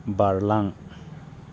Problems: none marked